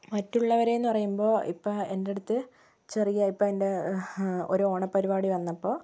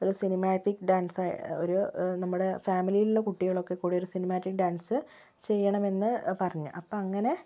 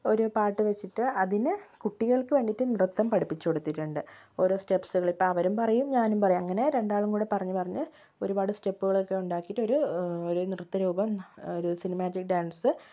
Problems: low volume